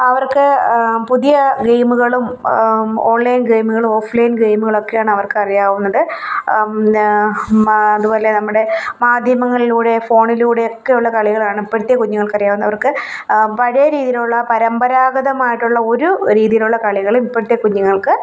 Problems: none marked